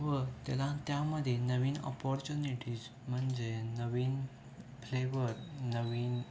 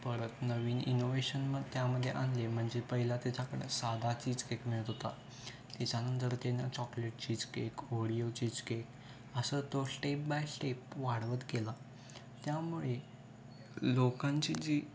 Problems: constant background noise, continuous background conversations